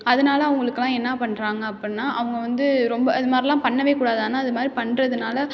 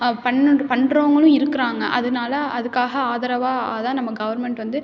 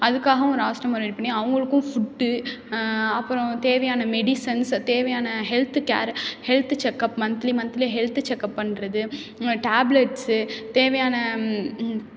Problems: none marked